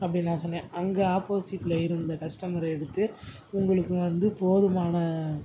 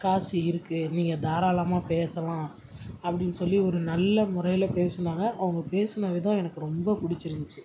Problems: background sounds at intervals